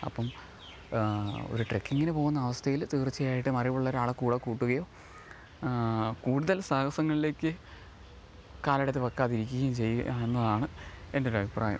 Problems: low volume